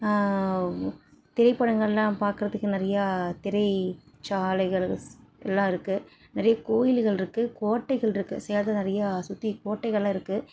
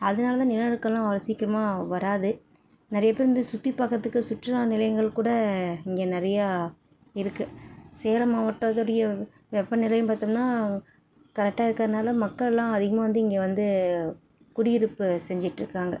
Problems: none marked